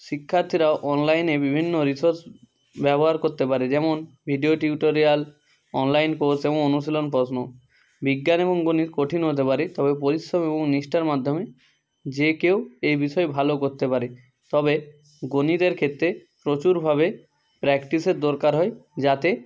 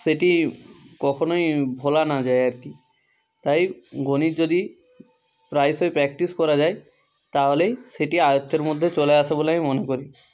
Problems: constant background noise